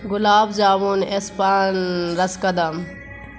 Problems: constant background noise